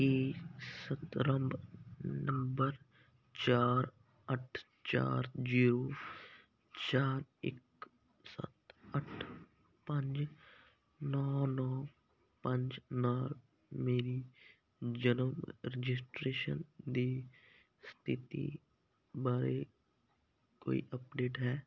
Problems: none marked